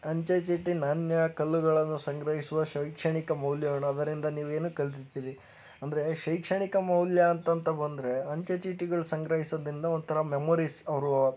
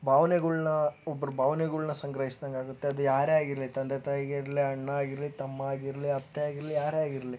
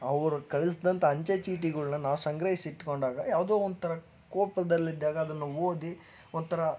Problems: background sounds at intervals